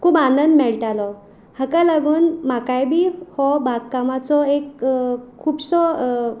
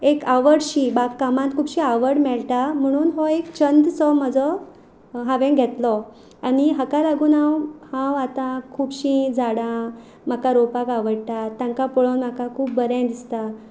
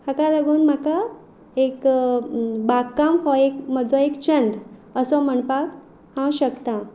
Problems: background sounds at intervals